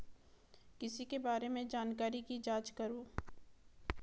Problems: background sounds at intervals